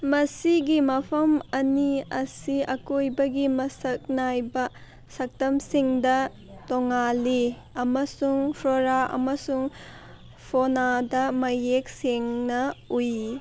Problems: background sounds at intervals